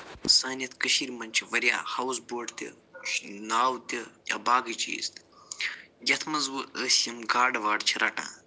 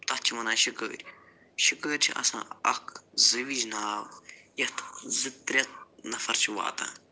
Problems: none marked